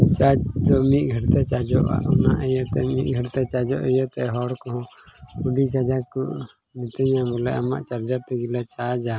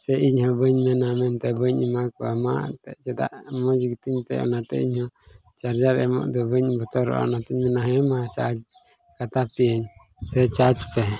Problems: constant background noise, low volume